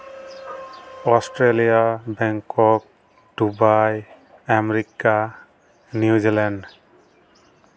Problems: none marked